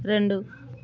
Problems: constant background noise